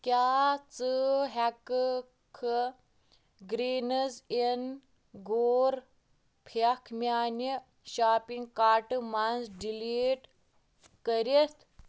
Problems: constant background noise